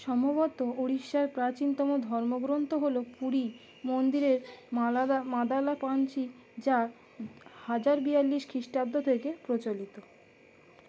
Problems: constant background noise